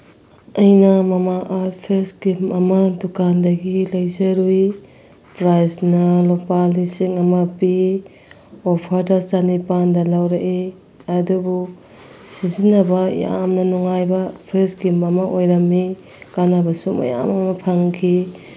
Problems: background sounds at intervals